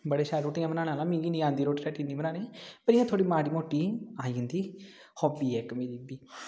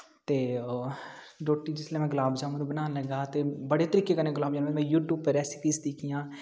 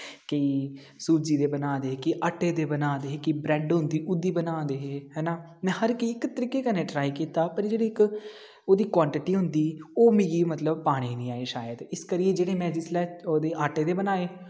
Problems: background sounds at intervals, echo